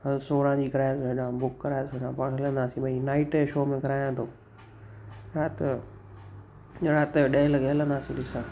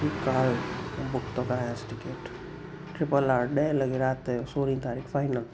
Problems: constant background noise, echo